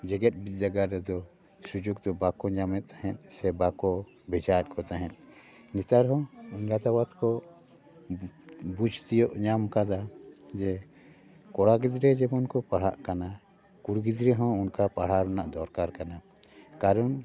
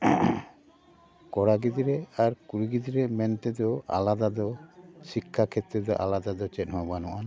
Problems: background sounds at intervals, background conversations at intervals